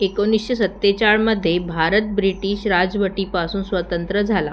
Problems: none marked